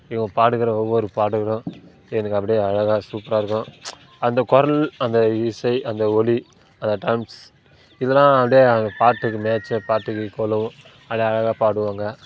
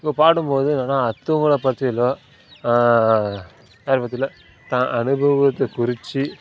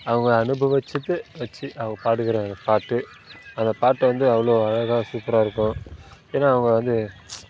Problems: constant background noise